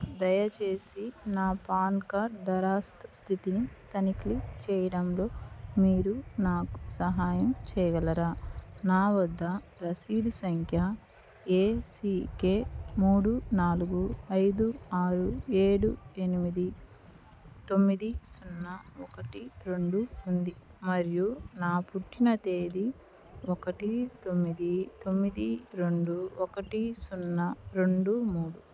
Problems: low volume